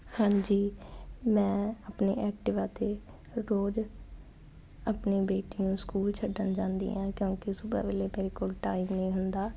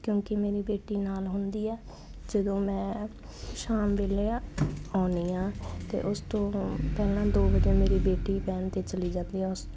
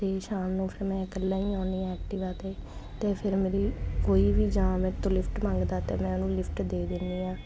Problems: none marked